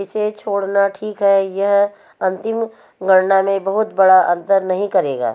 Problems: none marked